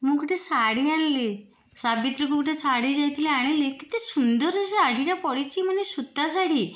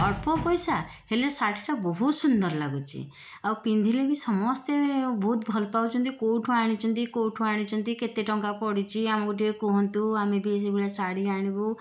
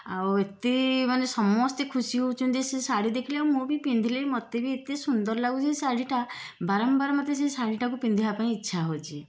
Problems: background sounds at intervals